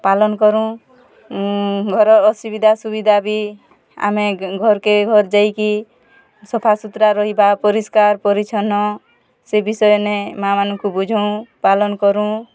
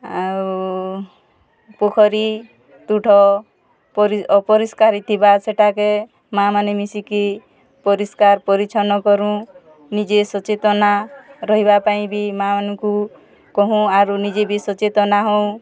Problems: constant background noise, continuous background conversations